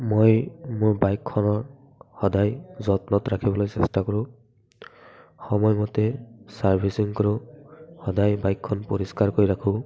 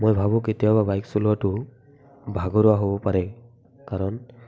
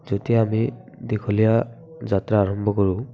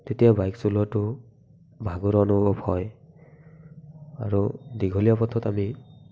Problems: background sounds at intervals, background conversations at intervals